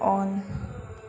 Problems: constant background noise